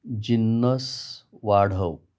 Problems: none marked